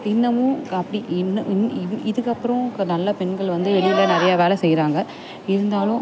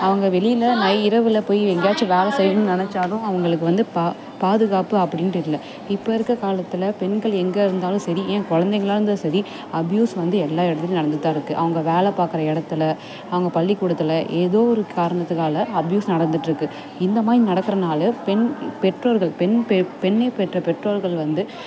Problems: constant background noise, background conversations at intervals